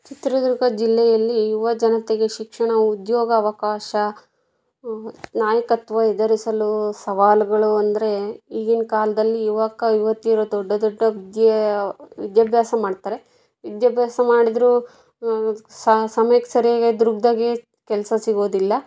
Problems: background conversations at intervals